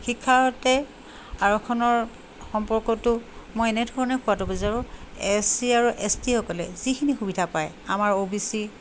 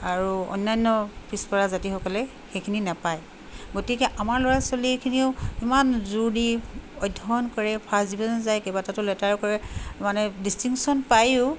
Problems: constant background noise